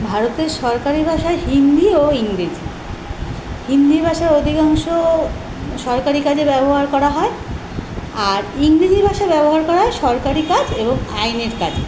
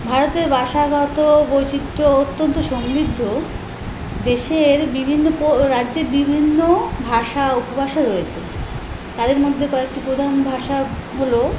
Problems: none marked